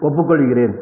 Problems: none marked